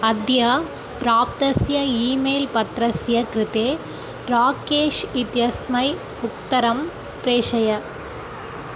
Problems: none marked